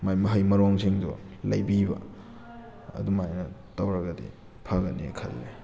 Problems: background sounds at intervals